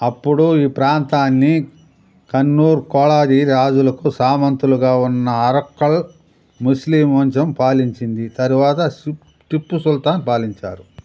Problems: constant background noise